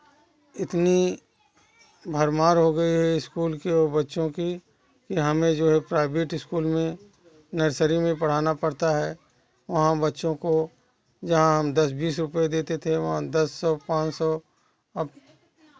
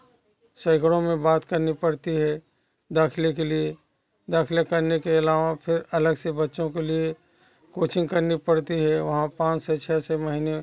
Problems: background sounds at intervals, continuous background conversations